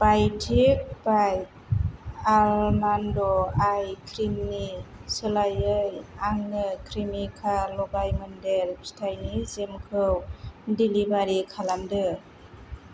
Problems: low volume